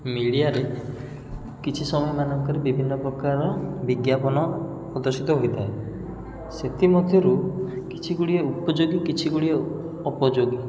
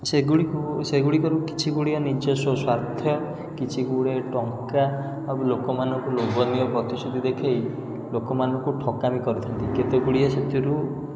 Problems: background sounds at intervals